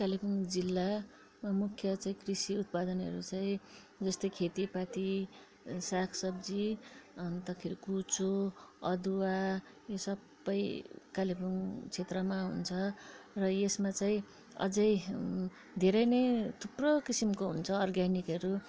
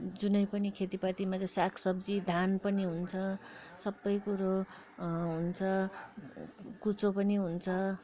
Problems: background sounds at intervals, background conversations at intervals